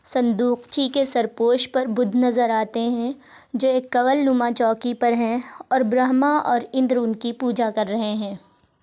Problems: none marked